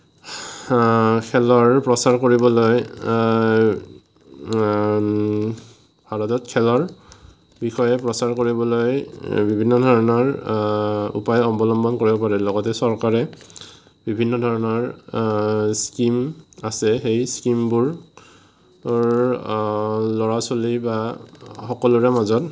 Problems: none marked